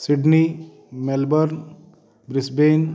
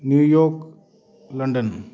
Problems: background sounds at intervals, background conversations at intervals